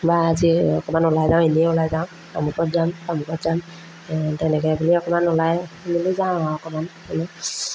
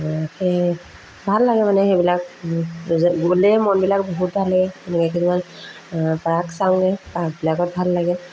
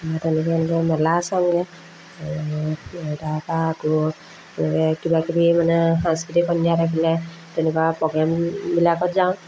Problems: constant background noise, background conversations at intervals